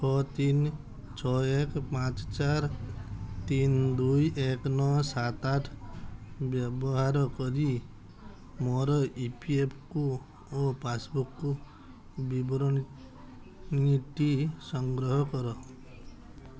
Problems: background sounds at intervals